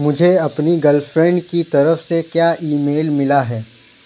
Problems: constant background noise